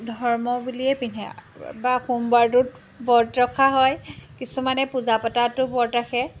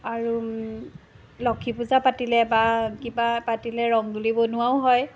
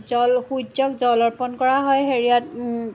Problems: background sounds at intervals